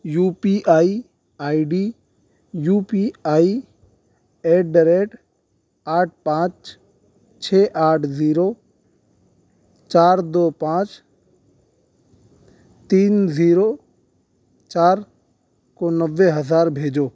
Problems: none marked